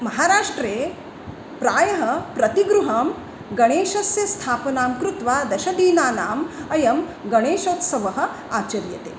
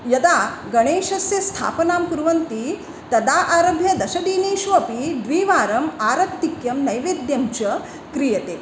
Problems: background conversations at intervals